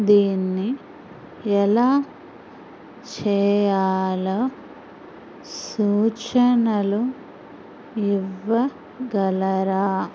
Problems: constant background noise